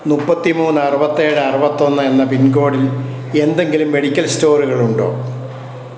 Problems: constant background noise